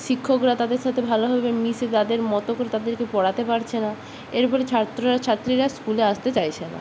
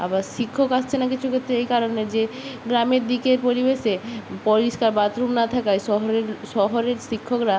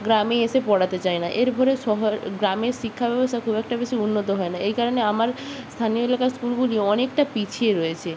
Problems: background sounds at intervals